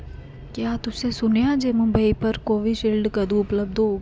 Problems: constant background noise